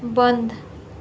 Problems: constant background noise